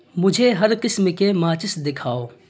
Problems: constant background noise